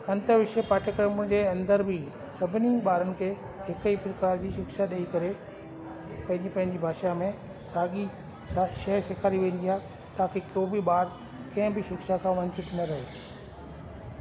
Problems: constant background noise, echo